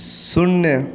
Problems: constant background noise